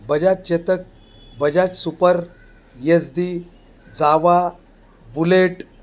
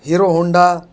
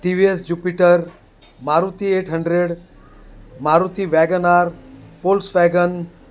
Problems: constant background noise